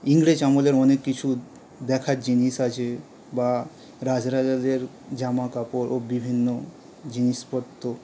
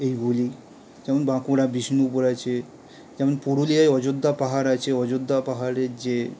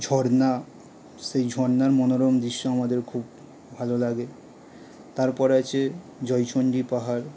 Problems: none marked